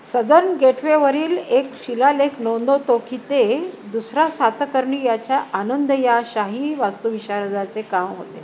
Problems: none marked